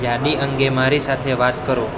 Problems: constant background noise